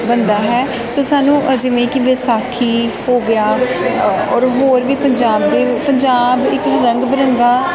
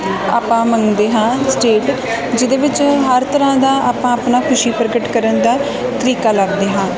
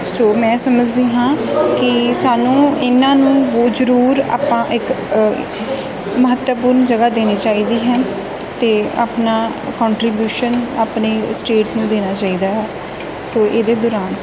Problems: constant background noise